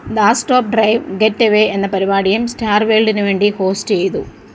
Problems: background sounds at intervals